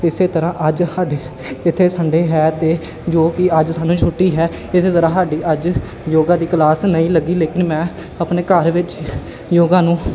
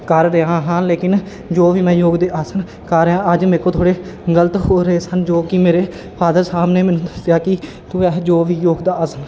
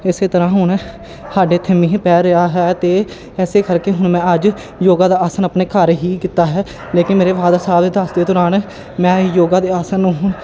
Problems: background sounds at intervals